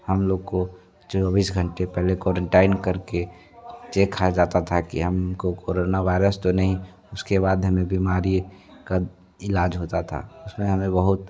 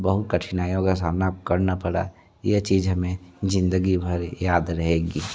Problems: continuous background conversations